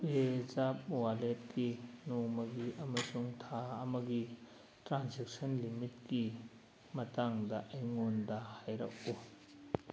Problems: background sounds at intervals, low volume